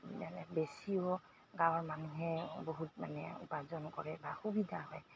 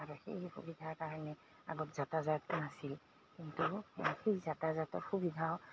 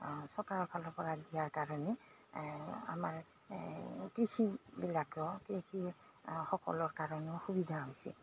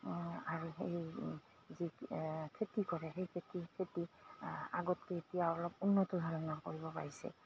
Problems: constant background noise